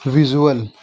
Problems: constant background noise